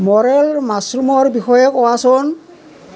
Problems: continuous background conversations